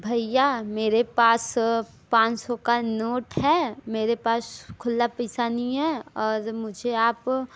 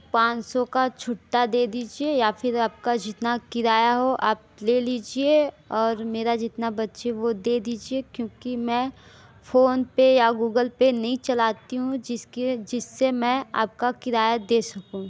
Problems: background sounds at intervals